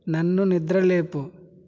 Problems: none marked